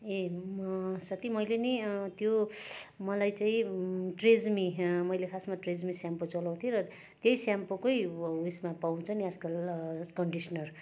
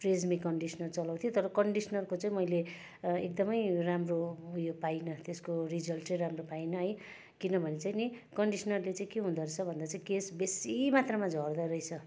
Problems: constant background noise, continuous background conversations